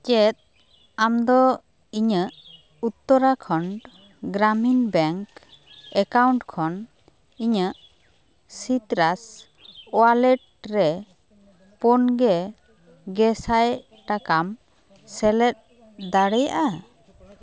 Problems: background sounds at intervals, continuous background conversations